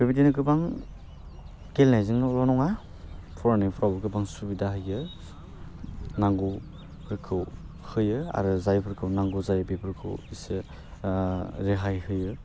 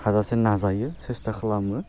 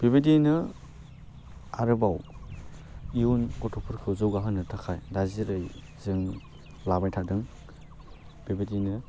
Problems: constant background noise